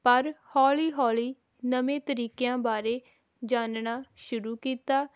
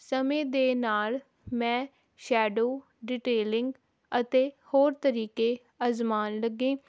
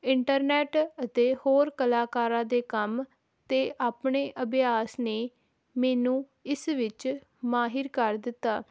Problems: none marked